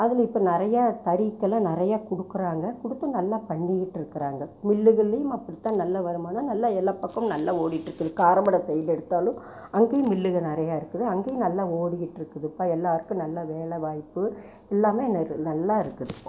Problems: background sounds at intervals